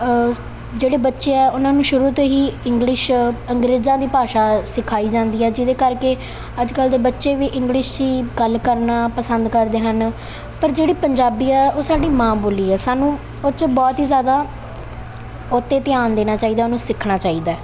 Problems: background sounds at intervals